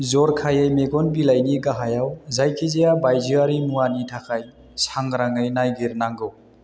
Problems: none marked